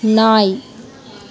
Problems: none marked